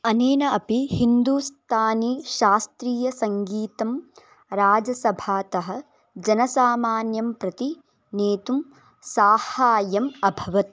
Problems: background sounds at intervals